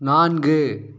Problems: none marked